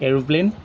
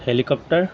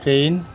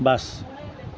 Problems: background sounds at intervals